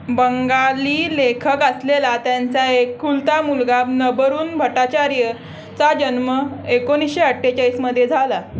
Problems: constant background noise, echo